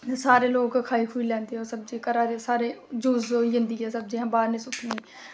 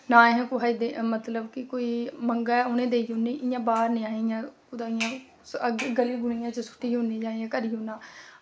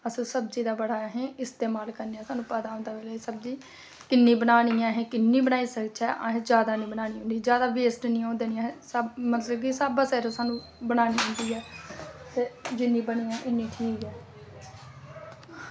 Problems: constant background noise